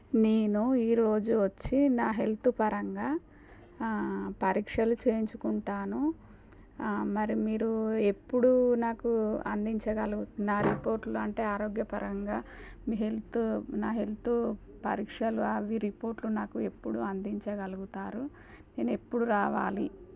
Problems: none marked